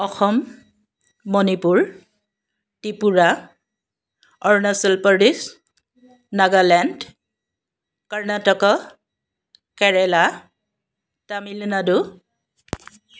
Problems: none marked